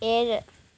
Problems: none marked